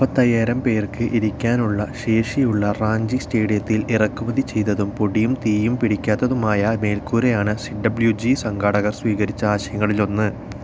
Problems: constant background noise